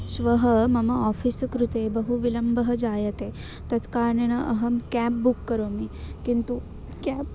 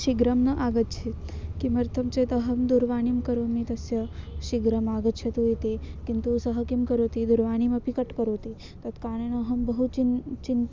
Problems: constant background noise